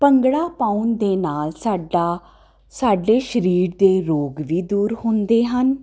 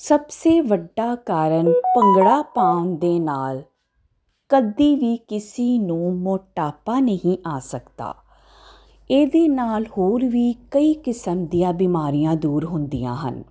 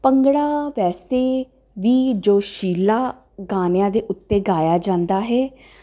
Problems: constant background noise